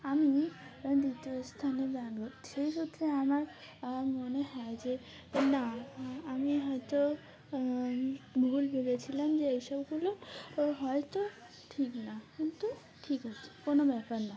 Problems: constant background noise, background conversations at intervals